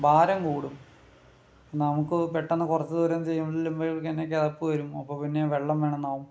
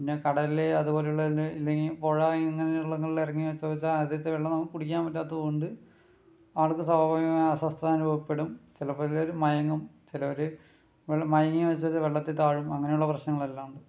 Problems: low volume